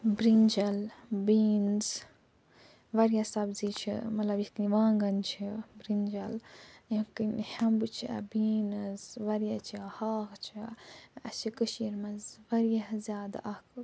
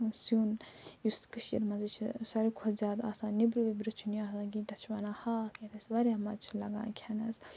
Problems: none marked